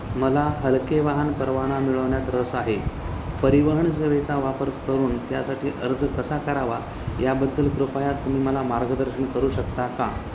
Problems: constant background noise